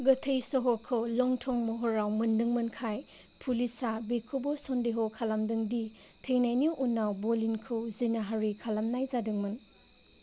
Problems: low volume